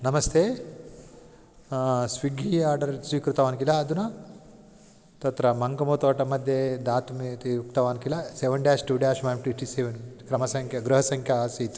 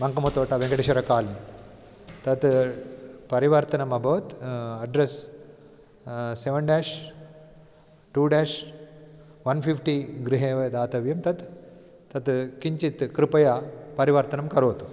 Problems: background conversations at intervals